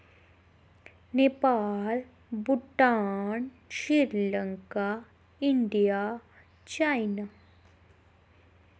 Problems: none marked